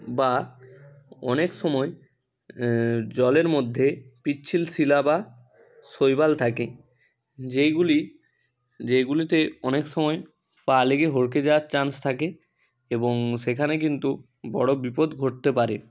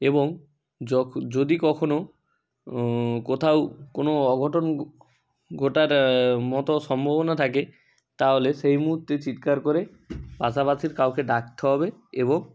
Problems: background sounds at intervals